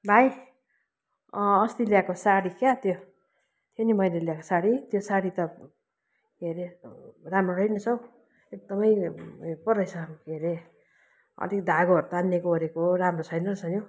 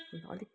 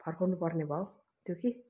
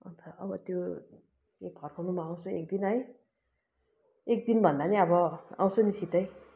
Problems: constant background noise